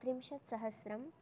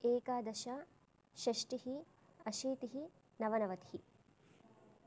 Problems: none marked